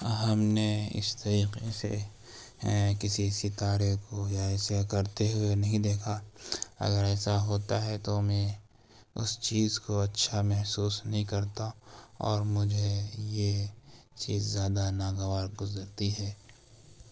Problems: constant background noise, low volume